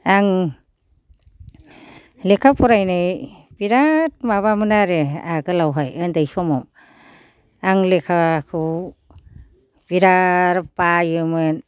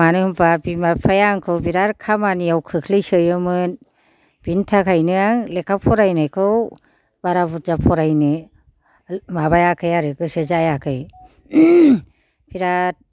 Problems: none marked